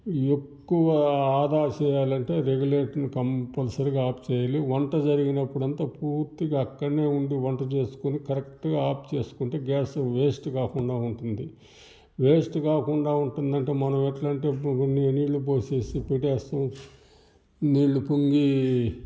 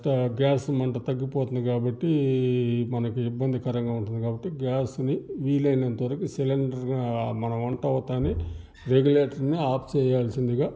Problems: background sounds at intervals